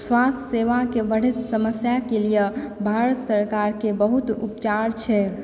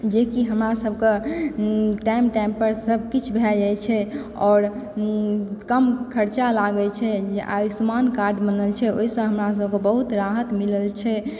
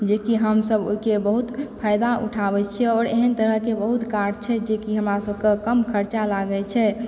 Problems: background sounds at intervals